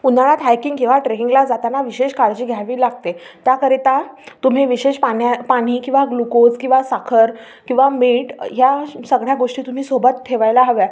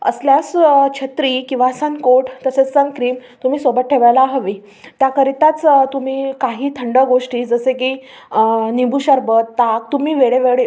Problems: none marked